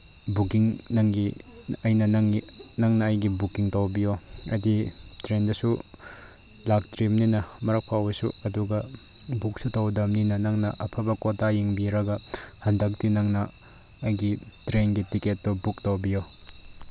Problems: background sounds at intervals